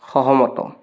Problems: constant background noise